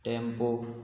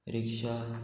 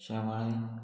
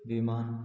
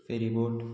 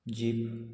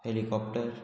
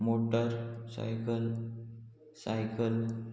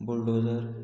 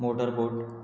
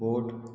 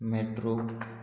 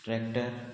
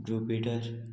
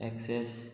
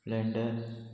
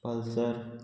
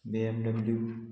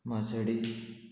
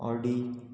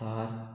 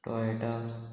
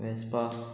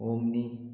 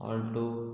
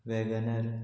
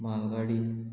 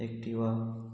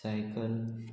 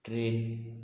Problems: constant background noise